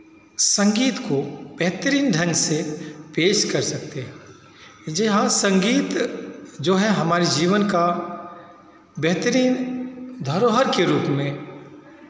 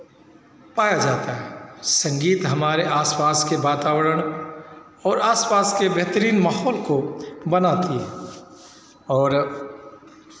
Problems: constant background noise, continuous background conversations